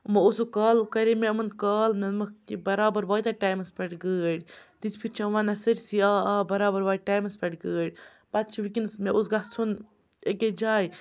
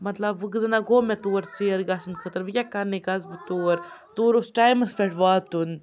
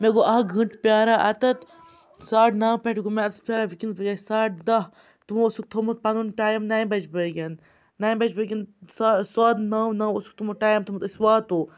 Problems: background sounds at intervals, background conversations at intervals